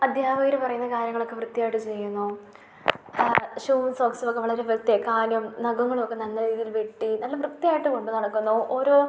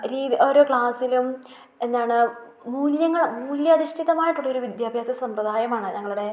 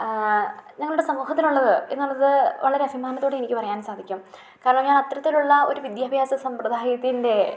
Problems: low volume